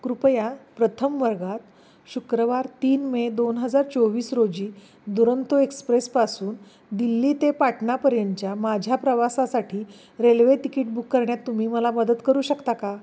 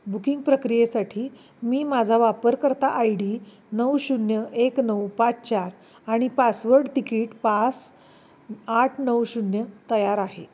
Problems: background sounds at intervals